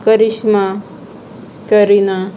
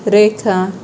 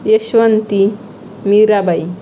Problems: constant background noise, background conversations at intervals